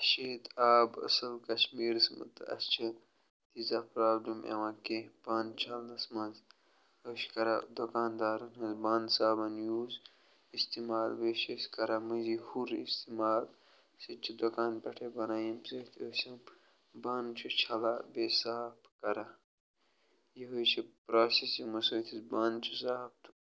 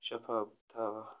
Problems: none marked